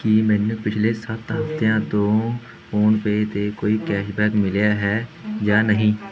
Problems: background conversations at intervals